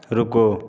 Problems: background conversations at intervals